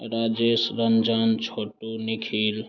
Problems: constant background noise